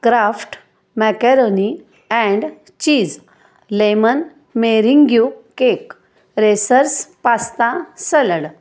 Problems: none marked